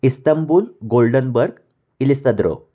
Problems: none marked